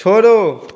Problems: none marked